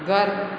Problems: constant background noise, echo